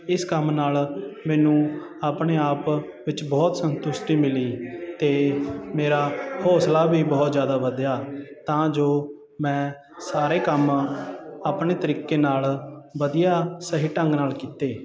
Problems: continuous background conversations